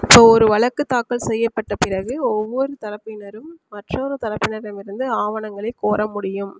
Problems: constant background noise